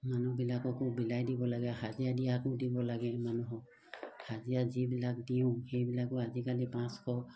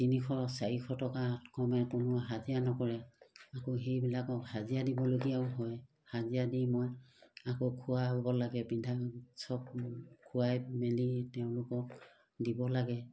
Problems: background sounds at intervals